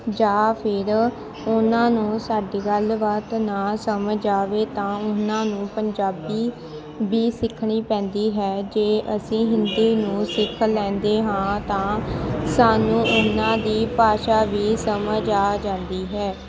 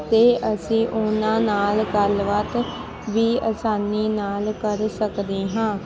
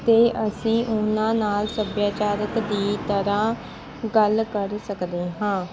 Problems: constant background noise, background conversations at intervals